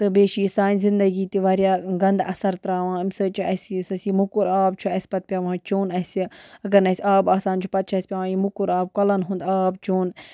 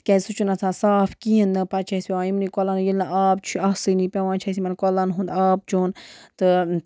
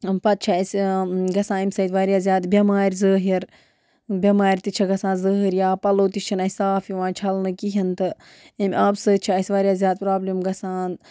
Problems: background sounds at intervals